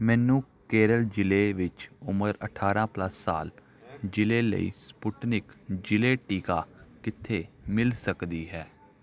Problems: background conversations at intervals